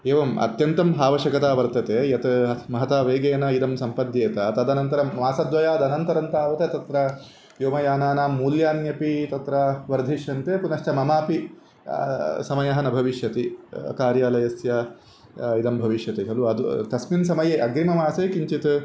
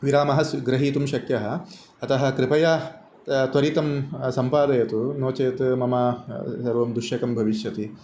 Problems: constant background noise